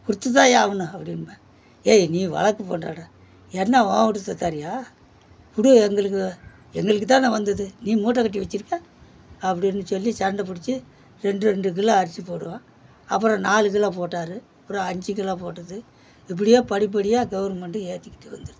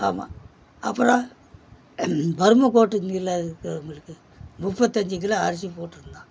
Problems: background sounds at intervals